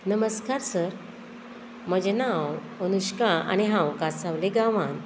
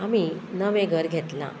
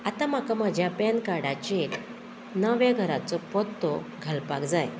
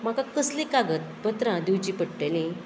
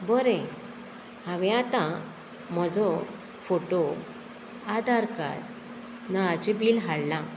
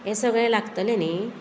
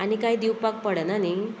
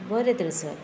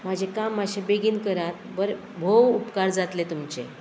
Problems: constant background noise